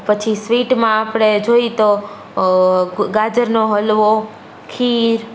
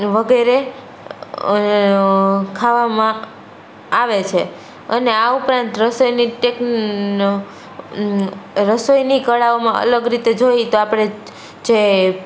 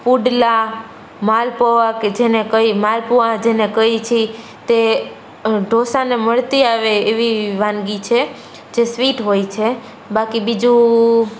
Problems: none marked